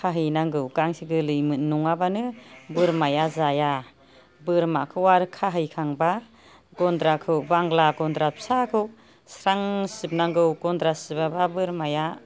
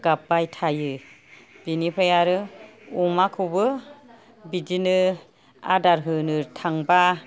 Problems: none marked